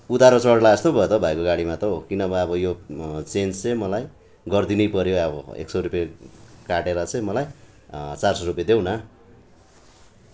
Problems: background conversations at intervals